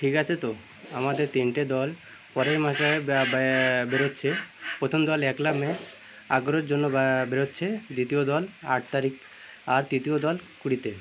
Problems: none marked